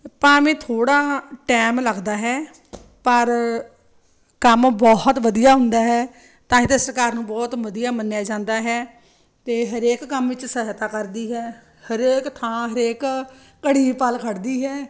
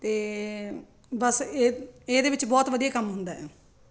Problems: none marked